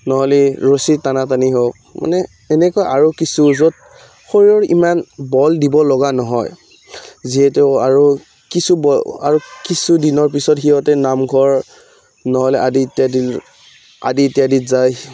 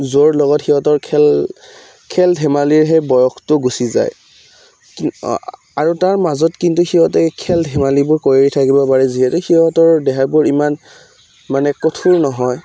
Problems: background sounds at intervals